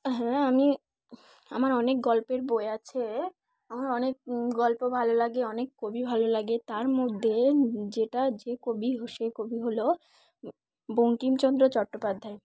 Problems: background sounds at intervals